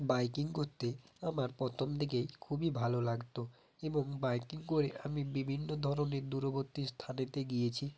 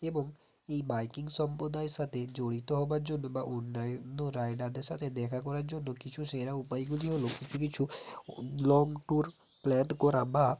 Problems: constant background noise